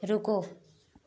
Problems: none marked